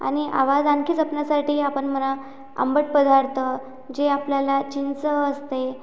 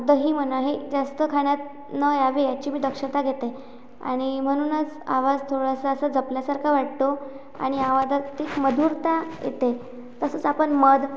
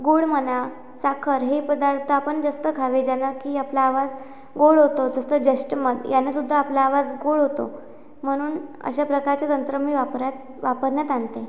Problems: none marked